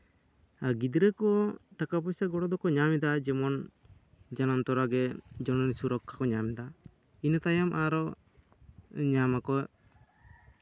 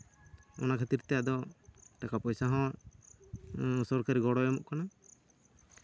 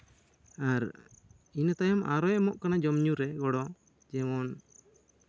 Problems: none marked